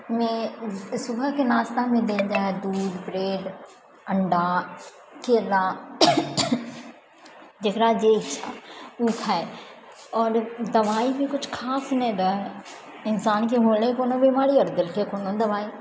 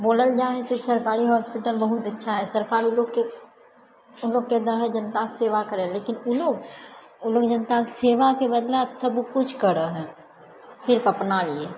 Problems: none marked